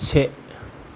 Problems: constant background noise